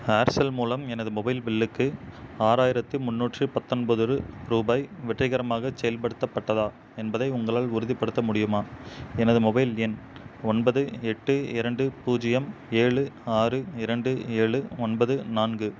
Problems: constant background noise